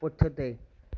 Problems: none marked